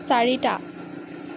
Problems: constant background noise